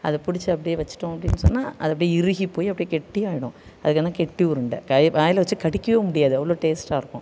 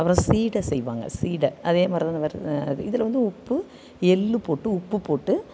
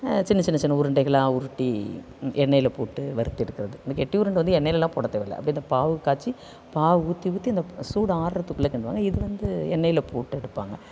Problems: none marked